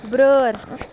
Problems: constant background noise